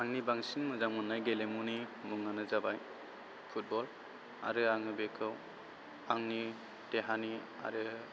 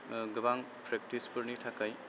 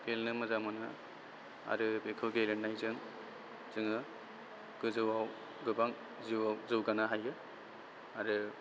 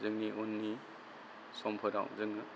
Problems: constant background noise